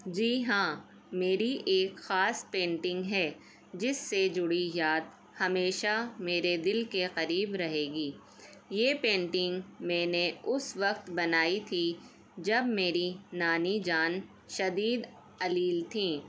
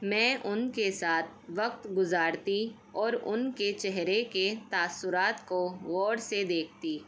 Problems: none marked